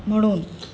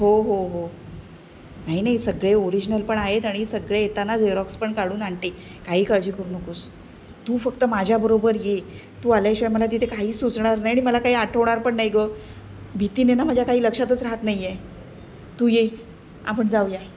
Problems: constant background noise